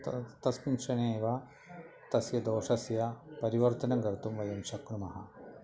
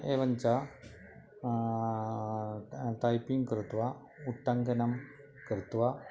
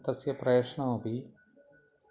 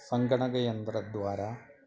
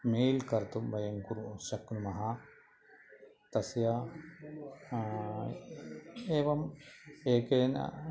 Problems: none marked